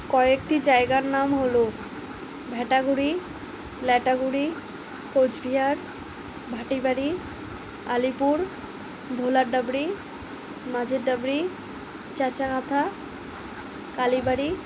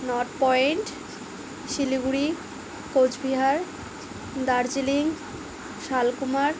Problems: background sounds at intervals